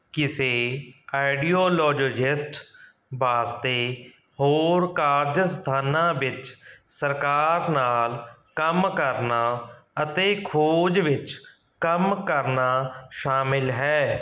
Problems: none marked